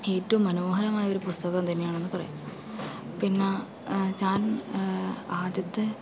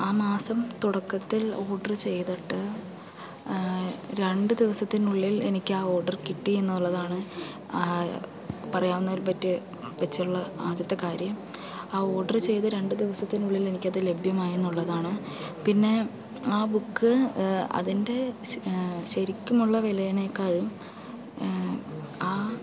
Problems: background sounds at intervals